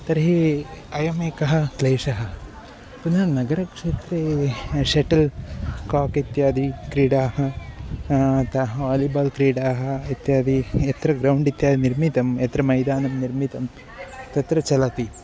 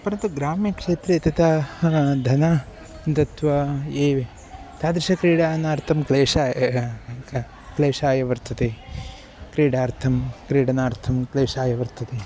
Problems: constant background noise